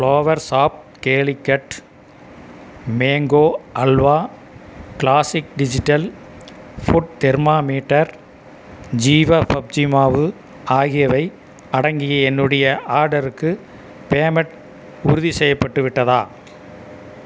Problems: none marked